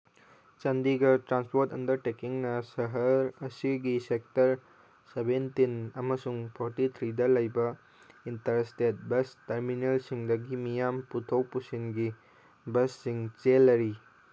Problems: background sounds at intervals